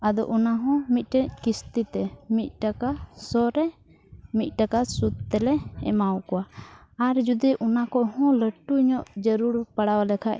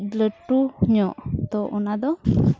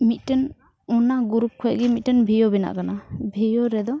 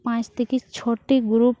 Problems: none marked